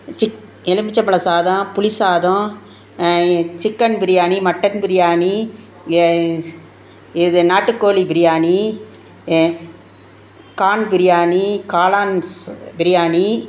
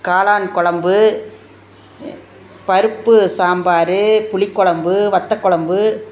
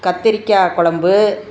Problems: none marked